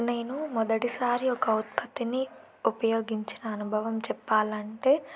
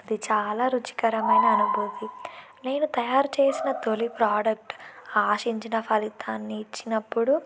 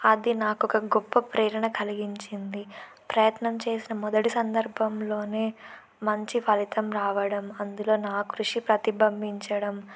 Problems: constant background noise